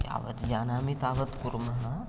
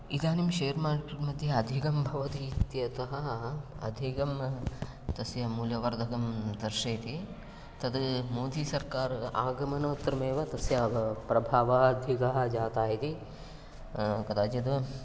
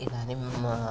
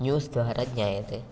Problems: constant background noise